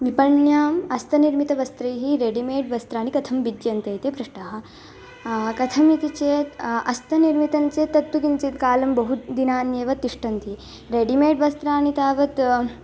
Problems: none marked